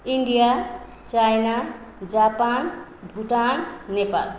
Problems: none marked